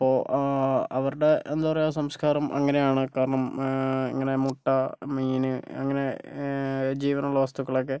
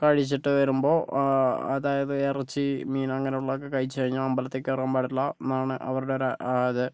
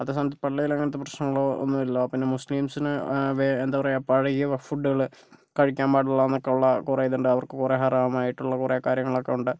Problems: none marked